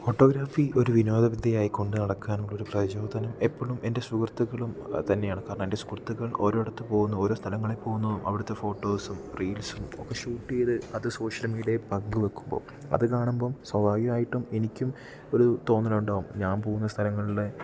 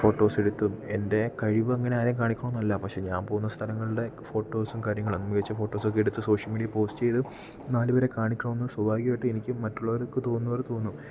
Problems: low volume